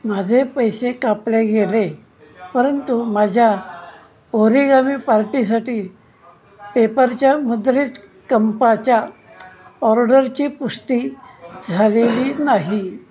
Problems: background conversations at intervals